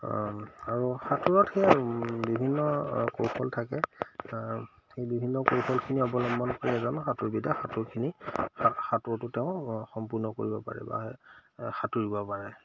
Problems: none marked